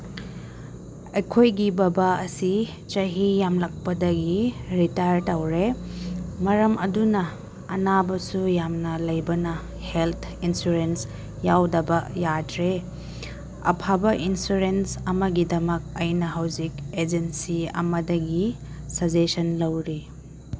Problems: background sounds at intervals